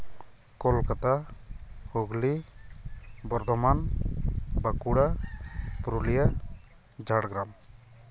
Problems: background sounds at intervals